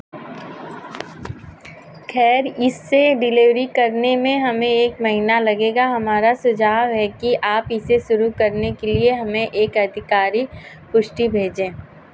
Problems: constant background noise